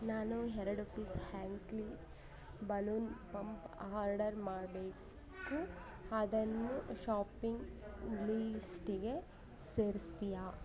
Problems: low volume